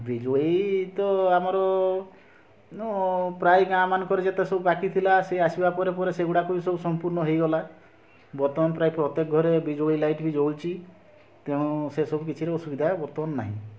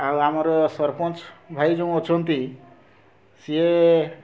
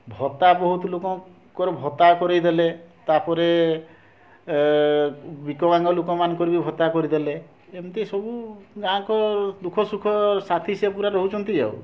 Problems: constant background noise, continuous background conversations